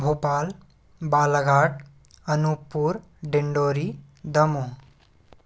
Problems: constant background noise